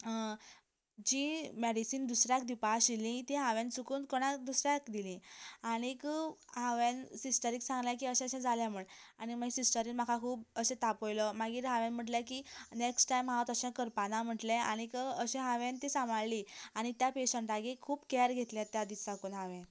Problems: background conversations at intervals